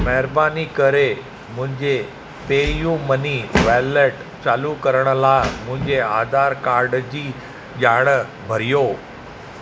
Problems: constant background noise